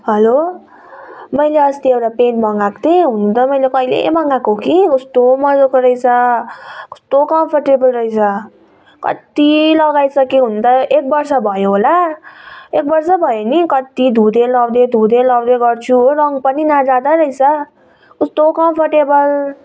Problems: background sounds at intervals